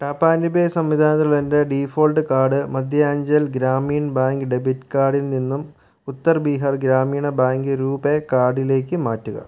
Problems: none marked